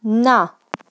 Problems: background sounds at intervals